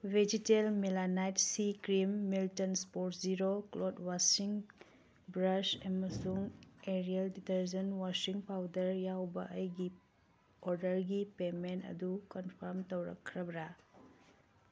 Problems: none marked